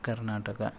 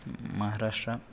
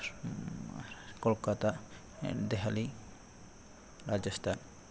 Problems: none marked